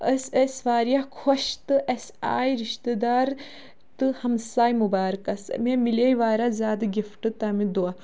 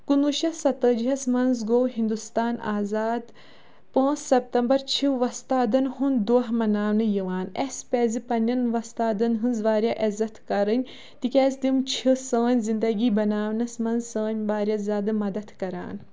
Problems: none marked